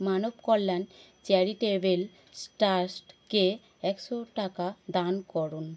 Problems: constant background noise